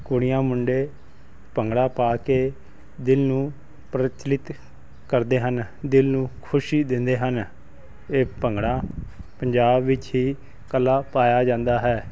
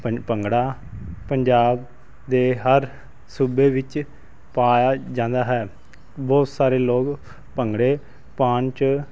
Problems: constant background noise